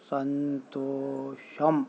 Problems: constant background noise